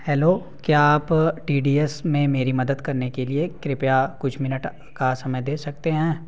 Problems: background sounds at intervals